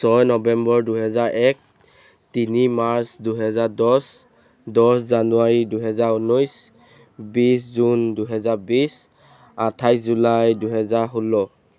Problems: background sounds at intervals